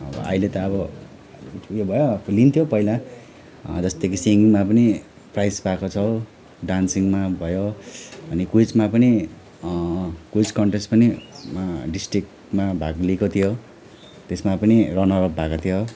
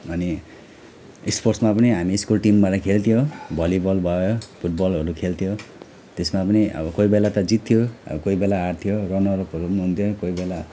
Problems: none marked